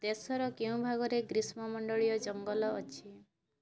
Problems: low volume